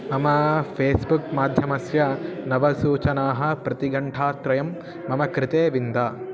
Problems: background sounds at intervals